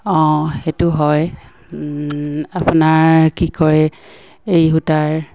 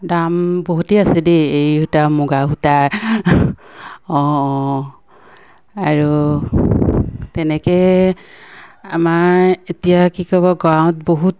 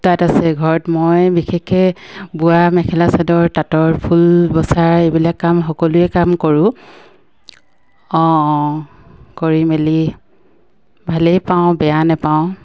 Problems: none marked